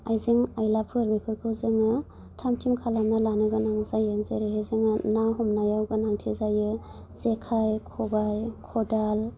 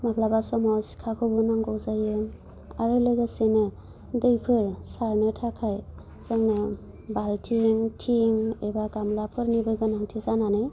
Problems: low volume